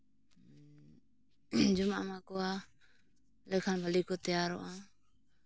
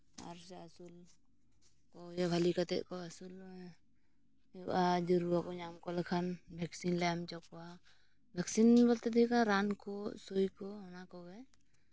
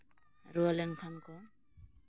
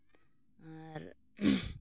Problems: constant background noise, low volume